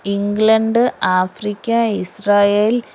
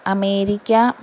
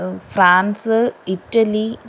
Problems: constant background noise